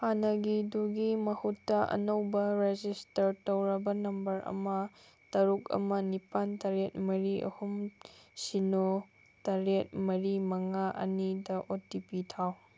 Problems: none marked